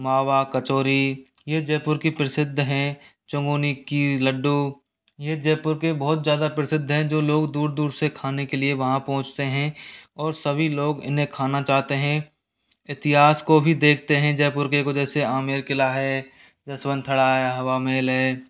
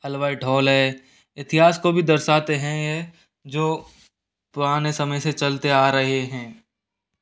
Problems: none marked